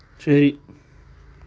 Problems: constant background noise